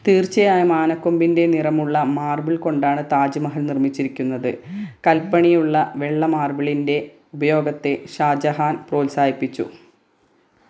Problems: none marked